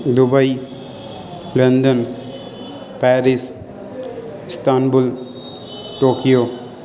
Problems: constant background noise